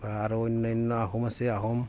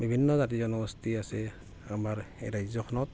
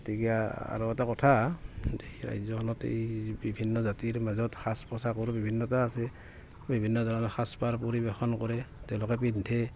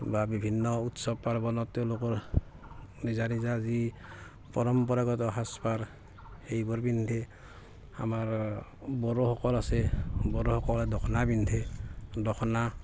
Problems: constant background noise, background conversations at intervals